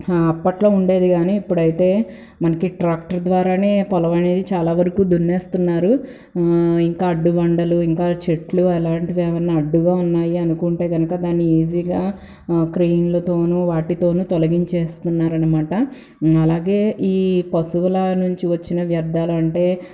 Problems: background sounds at intervals